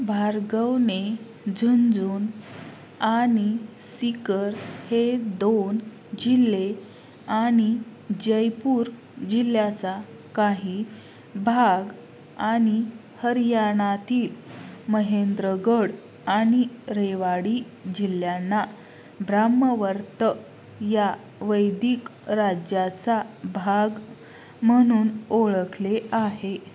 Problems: constant background noise